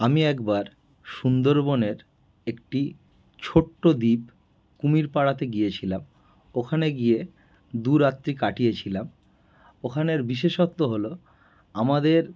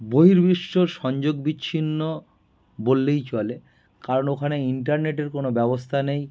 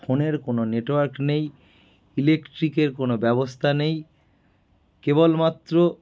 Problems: background sounds at intervals